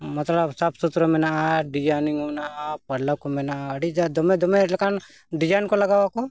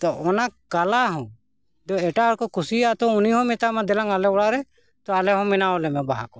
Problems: background conversations at intervals